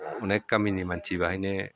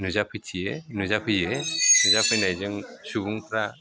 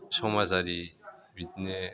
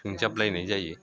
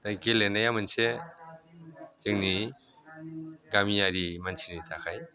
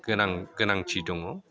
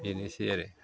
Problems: constant background noise